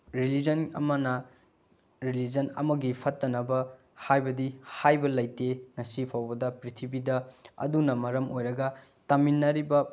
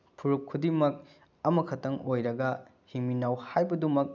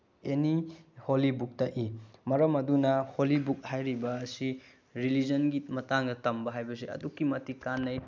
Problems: none marked